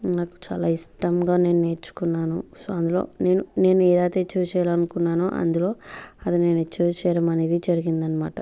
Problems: none marked